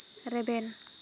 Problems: constant background noise, low volume